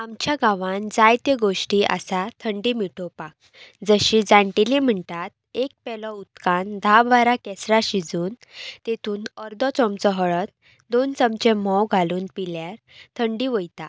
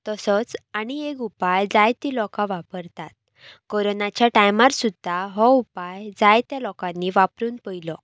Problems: background sounds at intervals